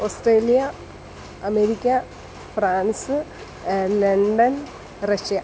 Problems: constant background noise